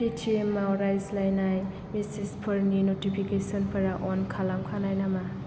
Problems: low volume